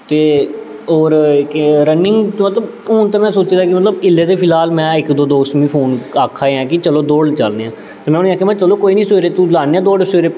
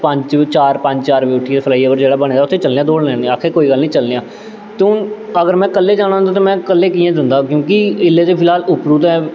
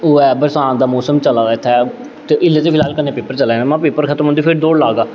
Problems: constant background noise, echo